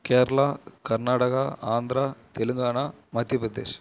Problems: none marked